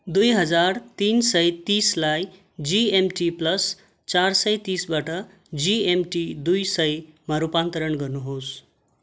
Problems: constant background noise